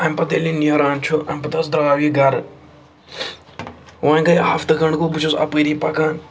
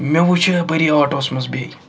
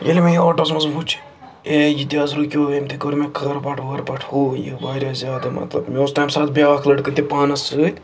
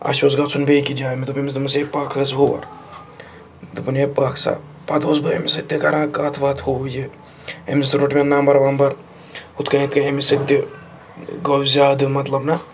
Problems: constant background noise